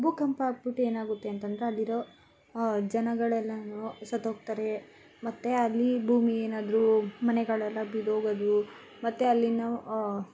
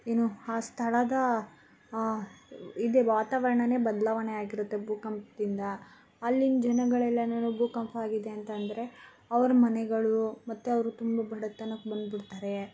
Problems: constant background noise